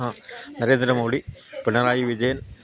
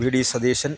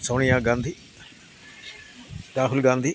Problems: background sounds at intervals